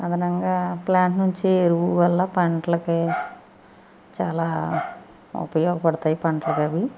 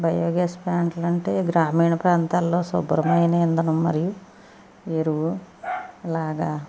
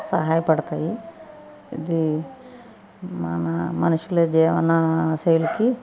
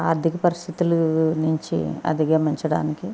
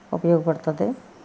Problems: constant background noise